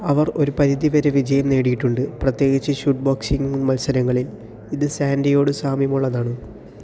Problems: none marked